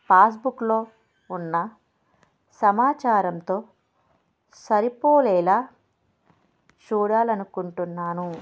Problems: background sounds at intervals